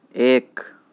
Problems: background sounds at intervals